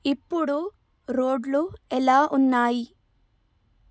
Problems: none marked